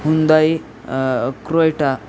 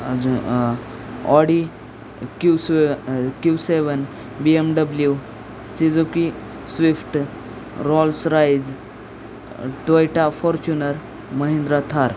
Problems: none marked